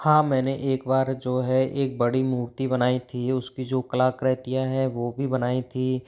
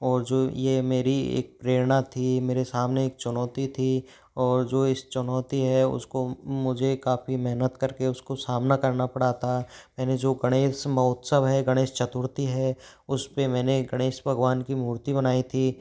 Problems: background sounds at intervals